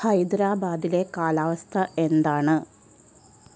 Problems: constant background noise